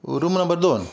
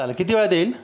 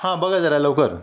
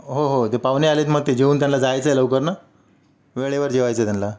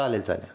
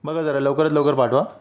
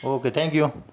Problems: constant background noise